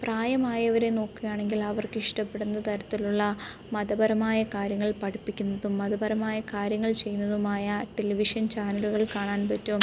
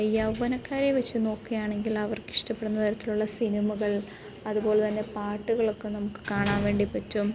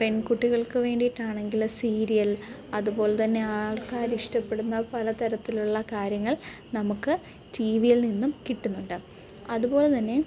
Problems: background sounds at intervals, low volume